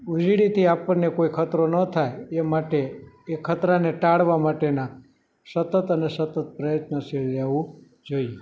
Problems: background sounds at intervals